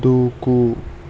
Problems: constant background noise